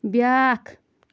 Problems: constant background noise